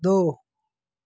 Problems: none marked